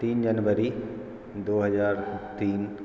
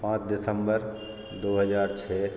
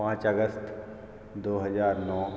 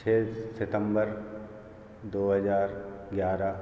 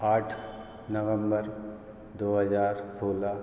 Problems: constant background noise